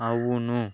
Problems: background conversations at intervals